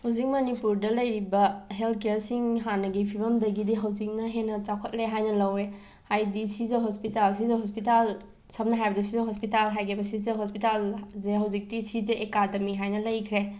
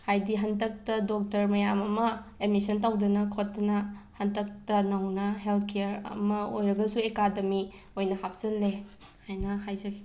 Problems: background sounds at intervals